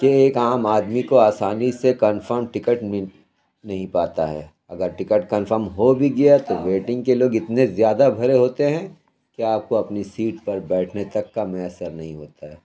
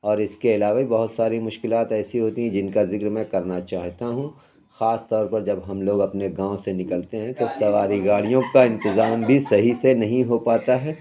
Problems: background sounds at intervals, background conversations at intervals